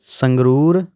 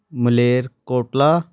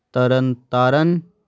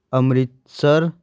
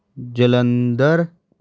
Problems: none marked